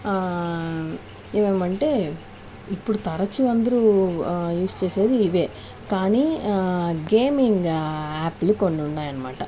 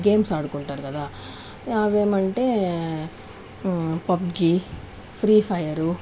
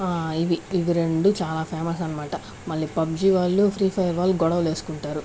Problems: none marked